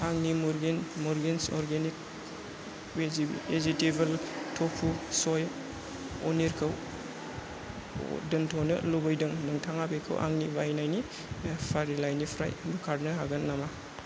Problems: constant background noise